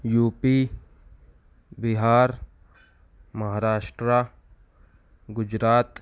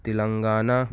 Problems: none marked